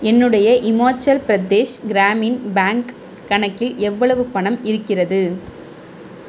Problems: constant background noise